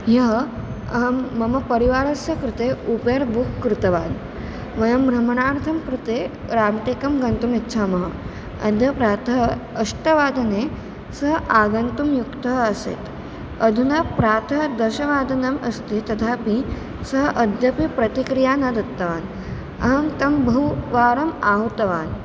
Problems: none marked